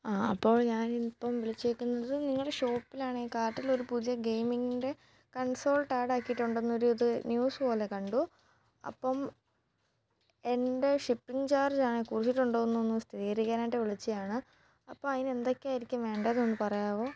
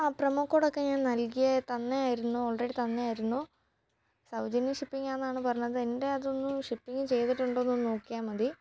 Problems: background sounds at intervals